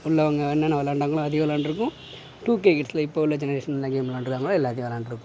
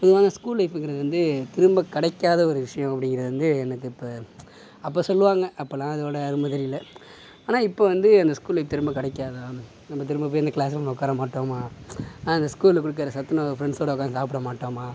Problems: background sounds at intervals